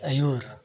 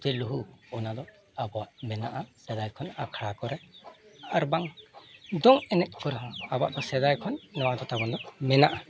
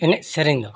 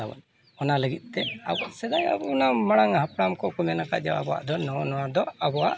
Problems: constant background noise, continuous background conversations